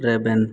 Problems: constant background noise